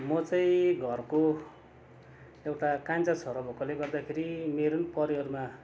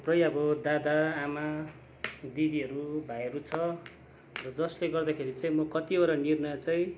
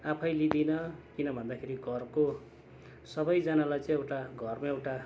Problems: constant background noise